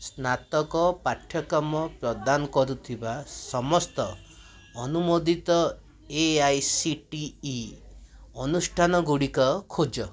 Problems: constant background noise, continuous background conversations